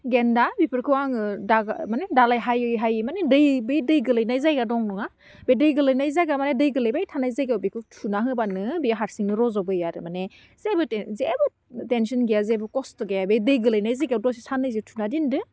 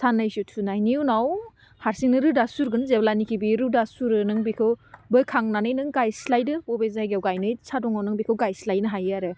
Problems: none marked